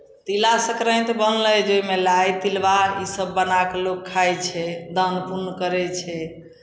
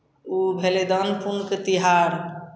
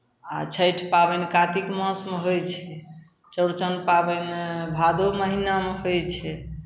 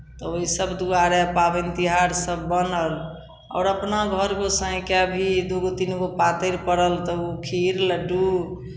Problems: none marked